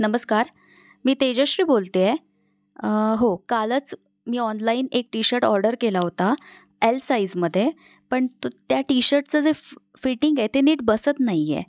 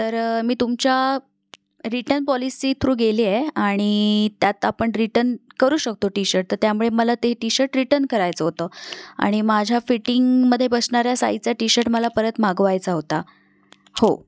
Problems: constant background noise